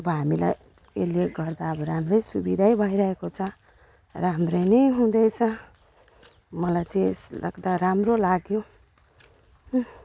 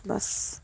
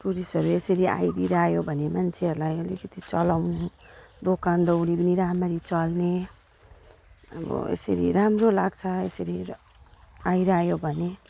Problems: background sounds at intervals